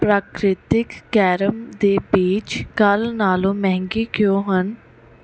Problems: background sounds at intervals